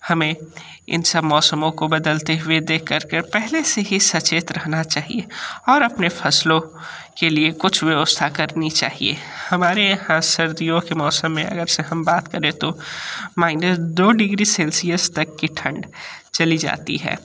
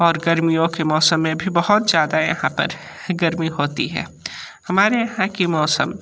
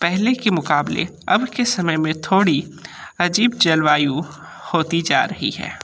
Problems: constant background noise